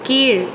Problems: none marked